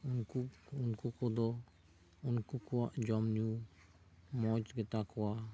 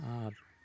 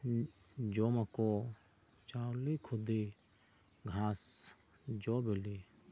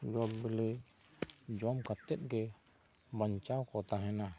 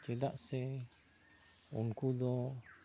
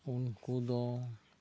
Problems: none marked